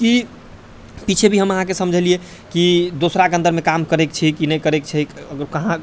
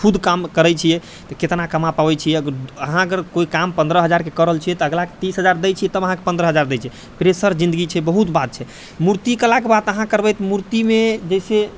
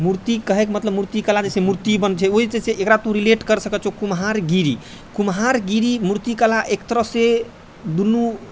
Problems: none marked